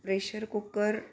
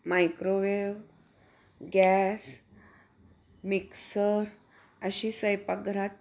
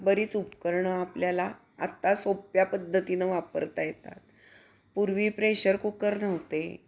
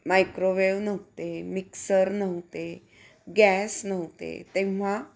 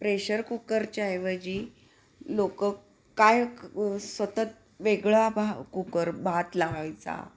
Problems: none marked